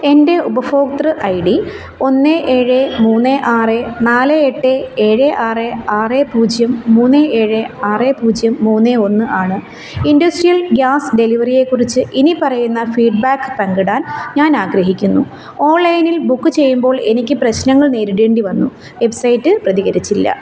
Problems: background sounds at intervals